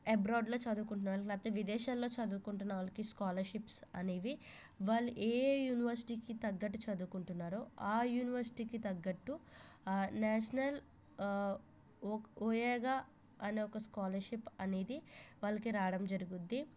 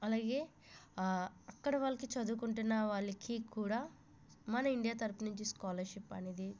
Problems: low volume